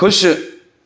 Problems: none marked